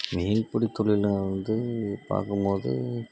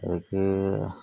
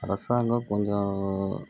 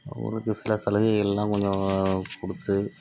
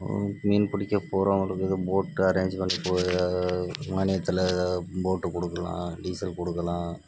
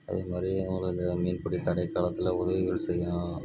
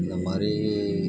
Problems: background sounds at intervals, low volume